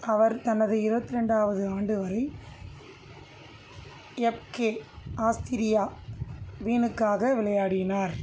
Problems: constant background noise